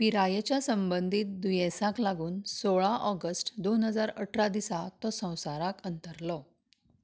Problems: none marked